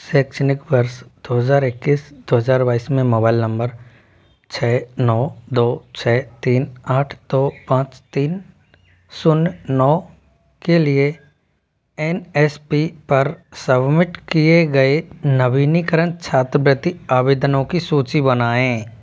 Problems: background sounds at intervals